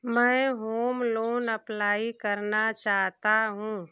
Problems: constant background noise